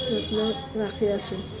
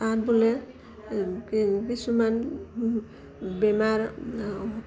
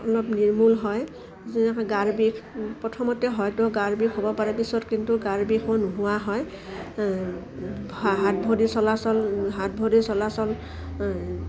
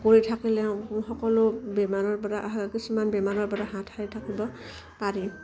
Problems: constant background noise